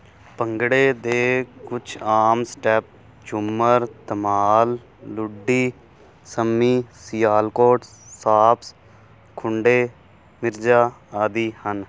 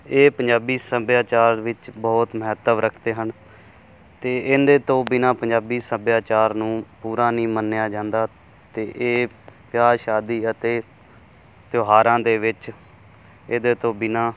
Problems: constant background noise